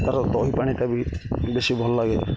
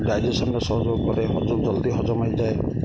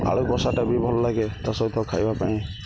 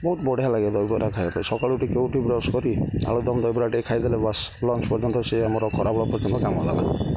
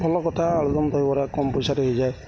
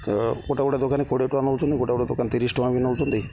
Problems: none marked